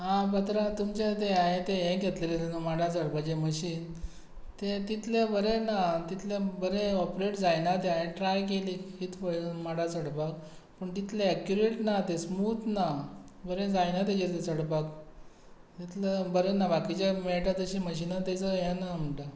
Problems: constant background noise